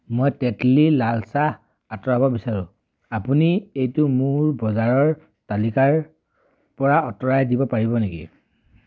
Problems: none marked